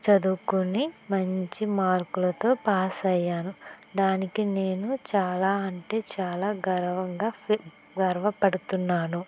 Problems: constant background noise, low volume